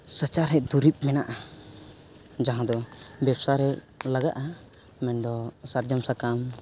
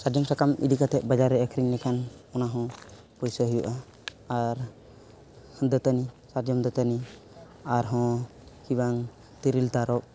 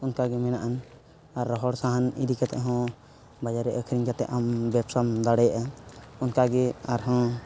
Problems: background sounds at intervals